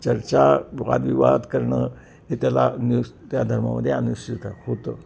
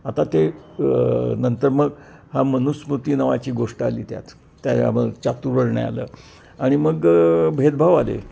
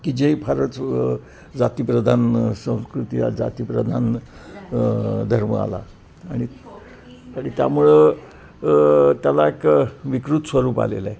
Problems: constant background noise, background conversations at intervals